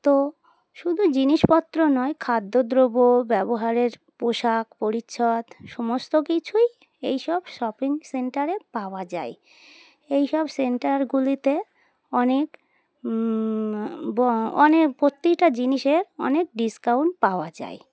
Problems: constant background noise